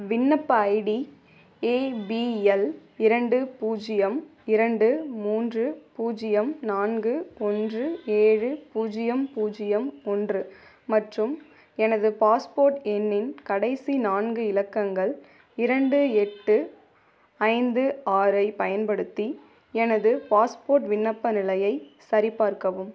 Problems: background sounds at intervals